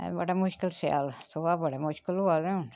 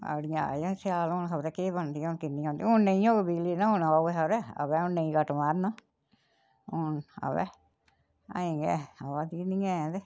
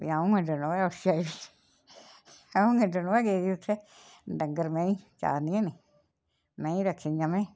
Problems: none marked